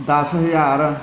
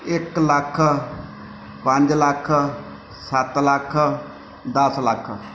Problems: background sounds at intervals